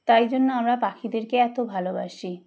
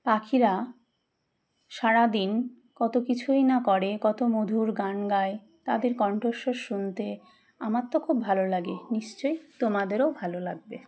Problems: background sounds at intervals